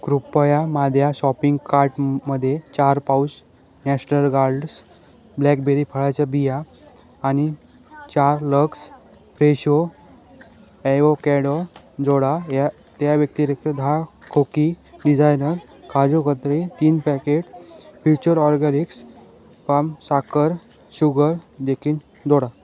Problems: none marked